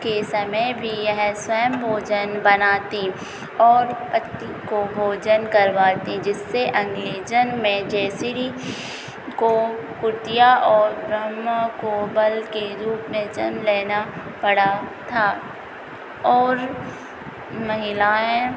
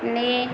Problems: constant background noise